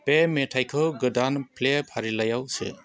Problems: constant background noise